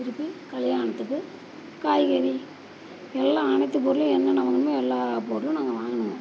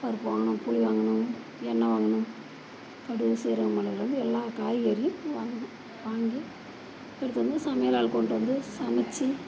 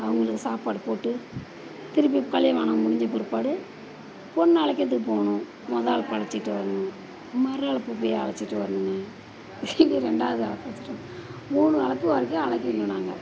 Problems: none marked